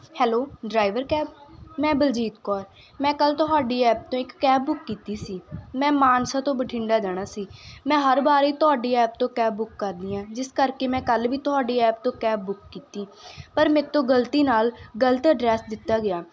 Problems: constant background noise